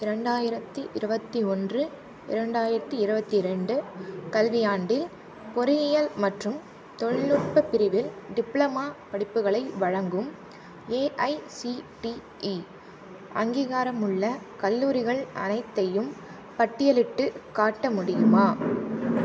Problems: constant background noise